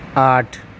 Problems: none marked